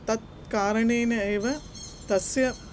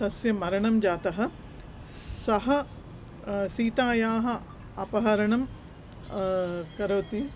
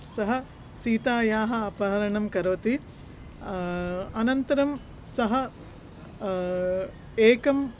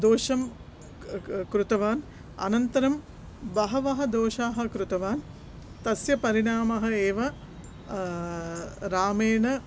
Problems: constant background noise